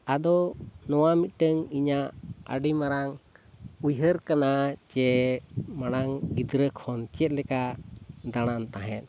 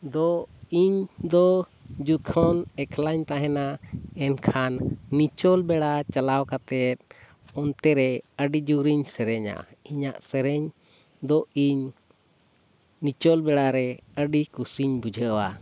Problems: background sounds at intervals